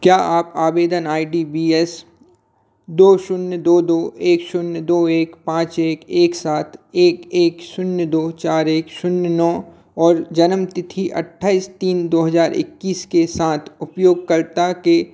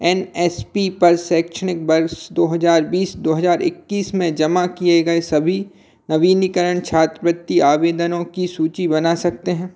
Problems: constant background noise